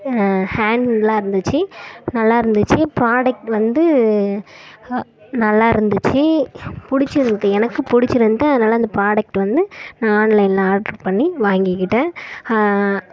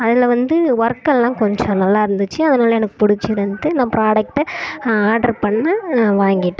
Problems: none marked